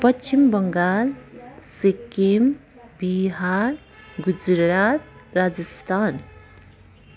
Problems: constant background noise, continuous background conversations